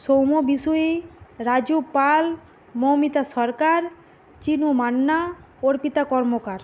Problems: constant background noise